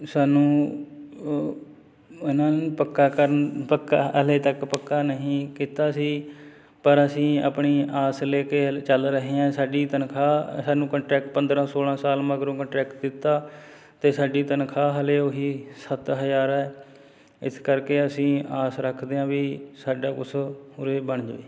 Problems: constant background noise